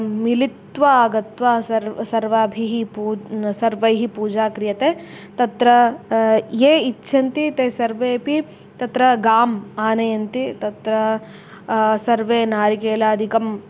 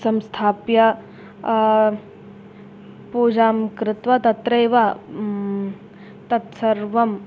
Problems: none marked